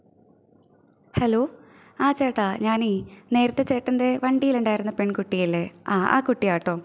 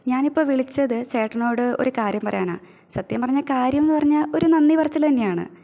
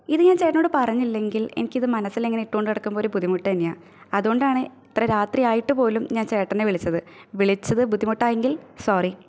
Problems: none marked